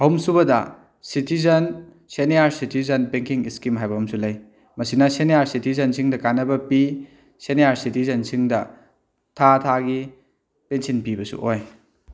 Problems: none marked